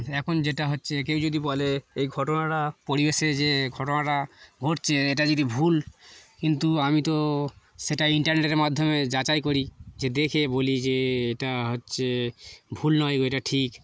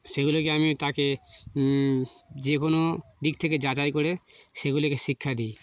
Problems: background sounds at intervals, background conversations at intervals